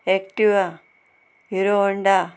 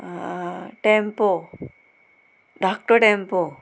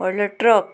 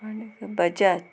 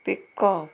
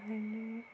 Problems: constant background noise